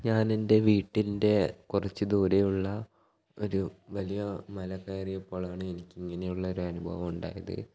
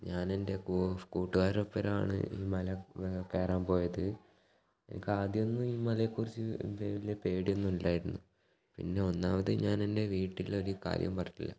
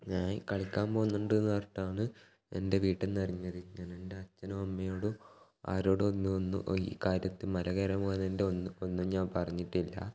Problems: low volume